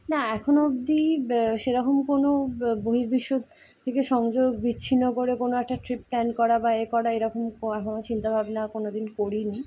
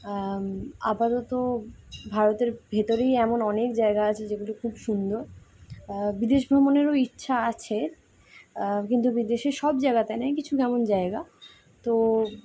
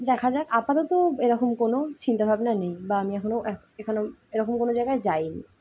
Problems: constant background noise